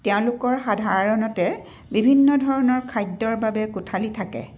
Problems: constant background noise